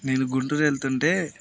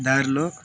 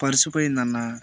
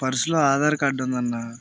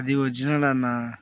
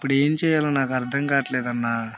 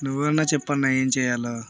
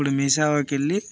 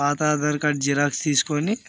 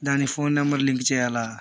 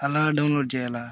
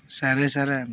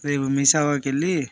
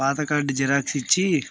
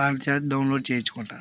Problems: constant background noise